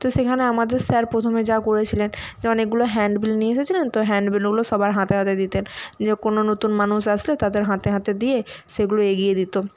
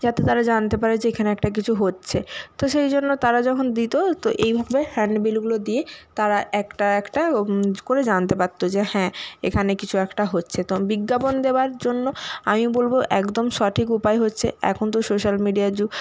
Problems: background sounds at intervals